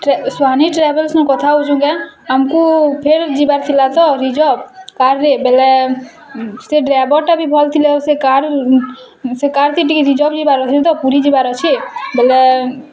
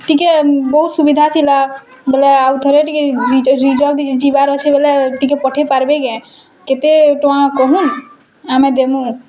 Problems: constant background noise, continuous background conversations